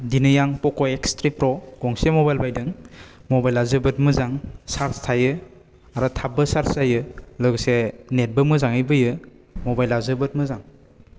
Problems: none marked